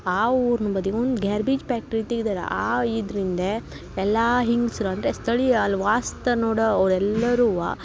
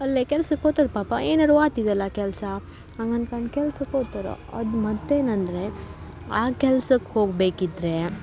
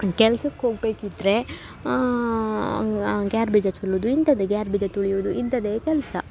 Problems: none marked